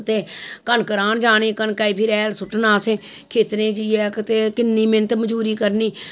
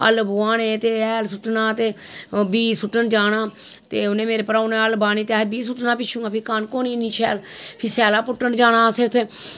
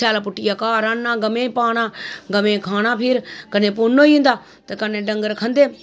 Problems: none marked